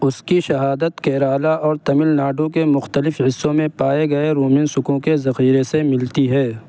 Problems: constant background noise